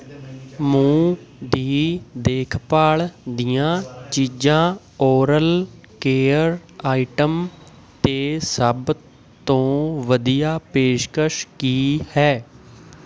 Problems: constant background noise, background conversations at intervals